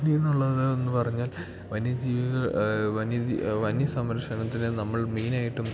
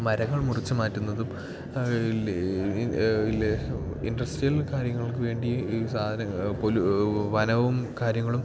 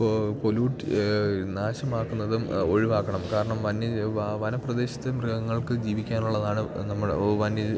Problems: background sounds at intervals